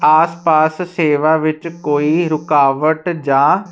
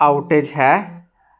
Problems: background sounds at intervals